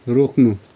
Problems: none marked